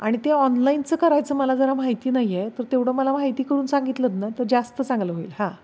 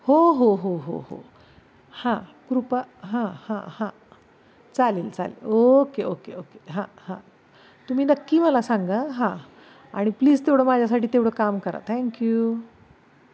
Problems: none marked